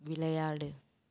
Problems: none marked